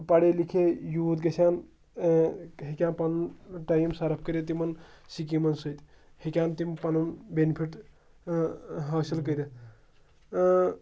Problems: none marked